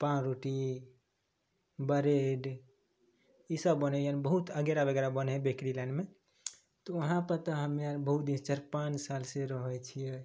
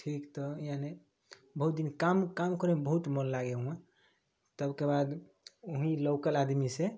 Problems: none marked